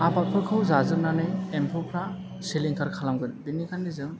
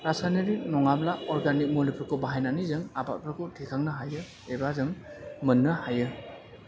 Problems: constant background noise, background conversations at intervals